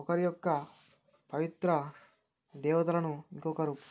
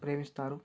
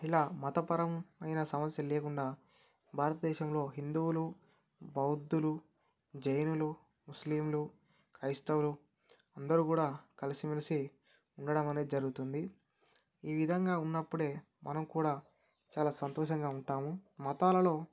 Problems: none marked